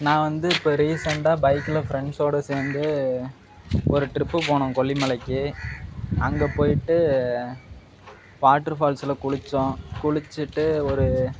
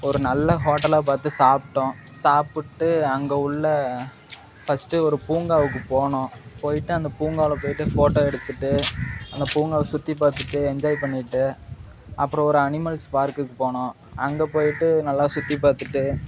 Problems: background sounds at intervals